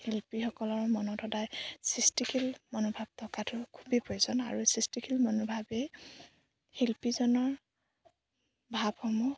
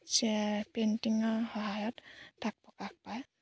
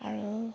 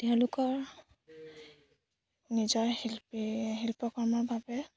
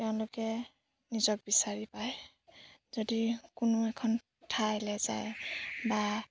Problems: background sounds at intervals